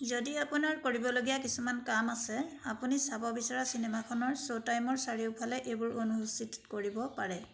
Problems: constant background noise